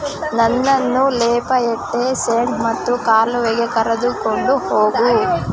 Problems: constant background noise, continuous background conversations